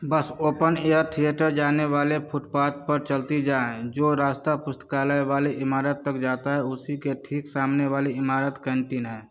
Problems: none marked